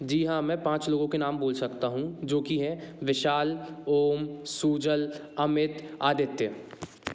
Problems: constant background noise